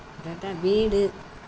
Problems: constant background noise